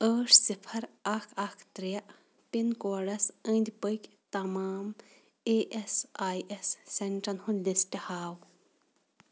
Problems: none marked